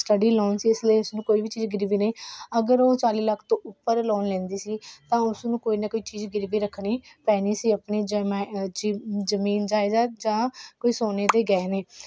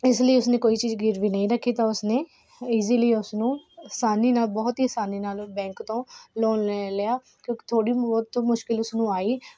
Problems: none marked